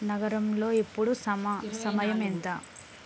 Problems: constant background noise, background conversations at intervals